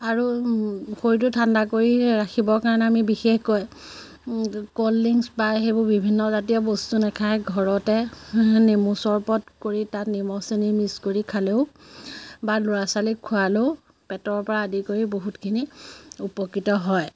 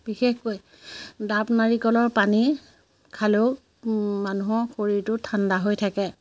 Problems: constant background noise